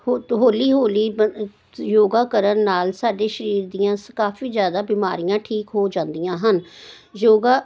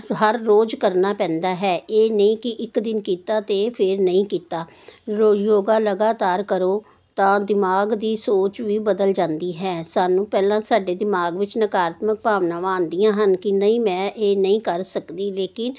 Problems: none marked